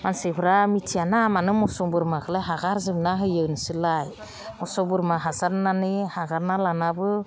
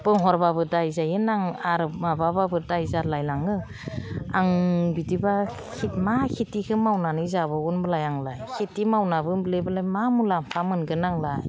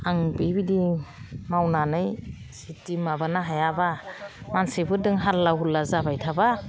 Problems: none marked